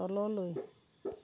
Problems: low volume